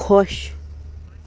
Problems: background sounds at intervals